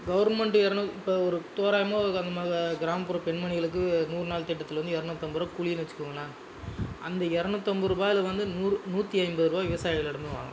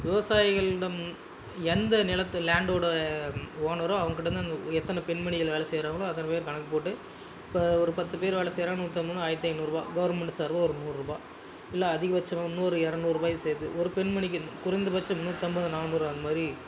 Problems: constant background noise, background conversations at intervals